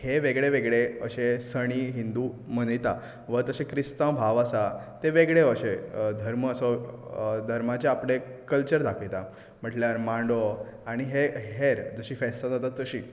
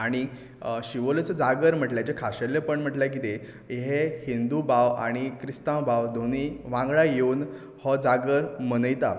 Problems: background sounds at intervals